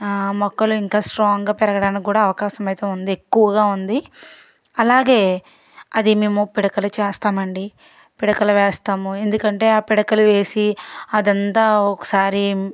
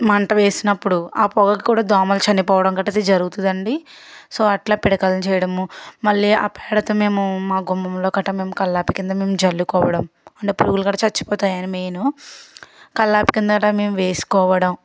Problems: background sounds at intervals